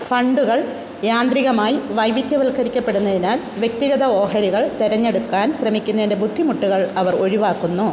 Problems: constant background noise